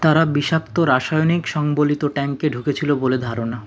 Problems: constant background noise